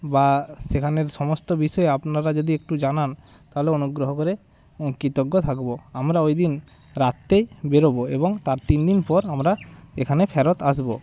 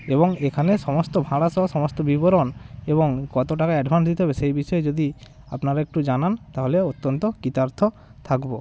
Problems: continuous background conversations